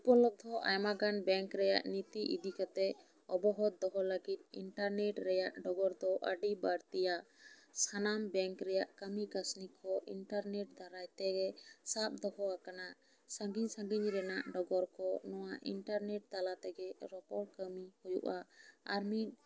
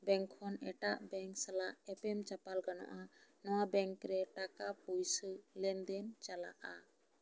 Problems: low volume